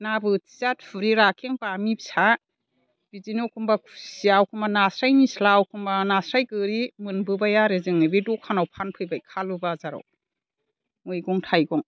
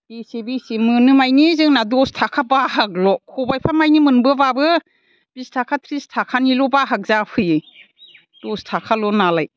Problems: none marked